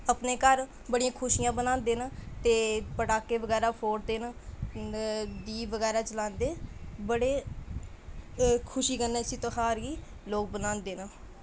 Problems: constant background noise